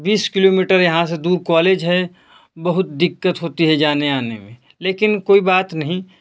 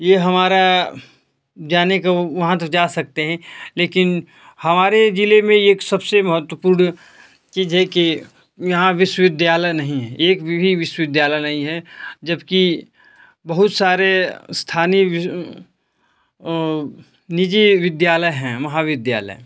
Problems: none marked